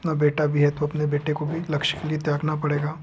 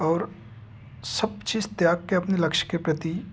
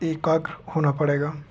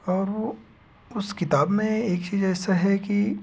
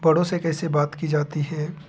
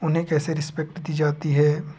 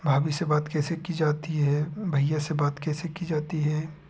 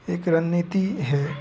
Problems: background sounds at intervals